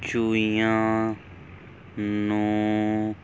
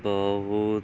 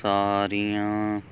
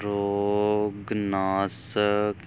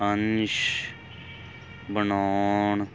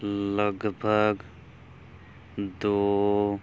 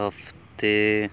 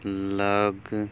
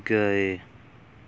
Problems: none marked